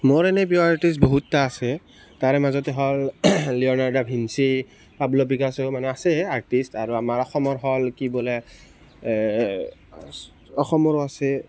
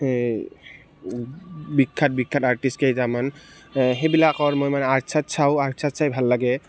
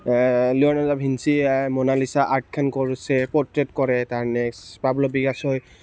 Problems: background sounds at intervals, background conversations at intervals